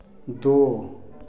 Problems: background sounds at intervals